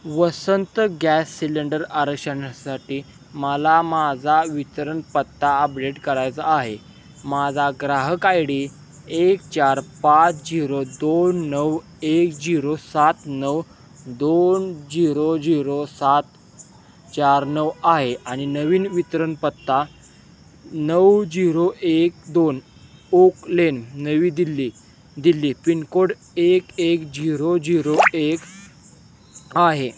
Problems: none marked